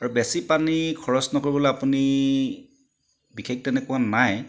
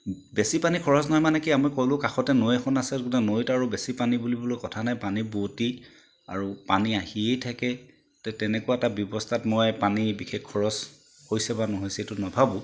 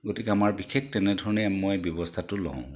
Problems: background sounds at intervals